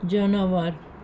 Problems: none marked